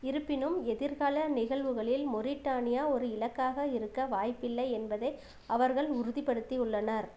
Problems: constant background noise